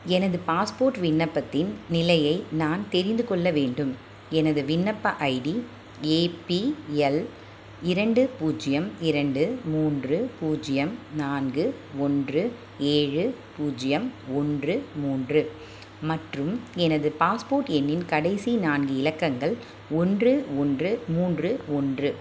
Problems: none marked